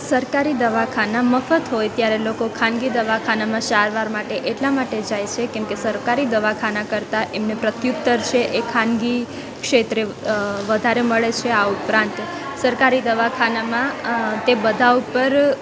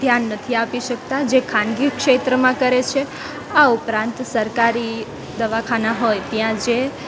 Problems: constant background noise, background conversations at intervals